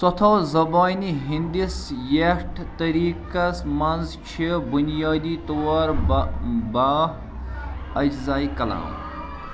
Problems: constant background noise